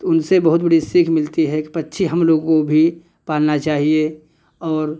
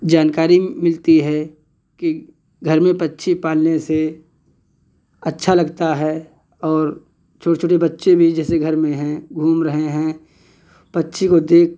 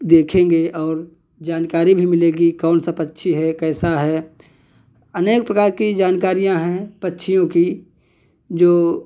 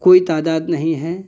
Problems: none marked